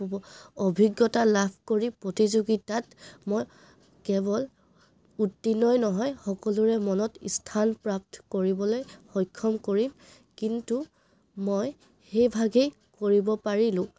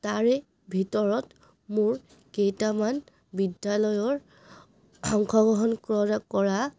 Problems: background sounds at intervals